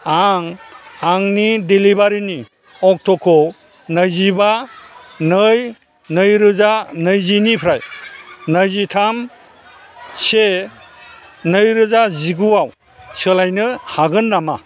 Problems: constant background noise